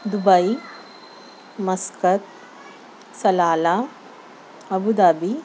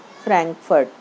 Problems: constant background noise